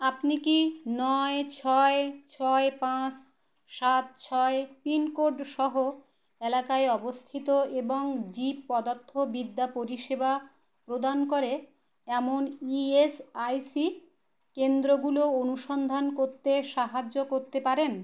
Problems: none marked